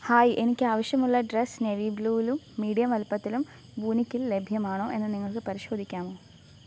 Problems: low volume